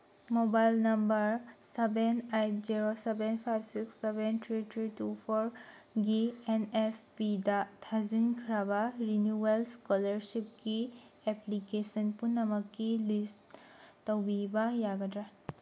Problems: none marked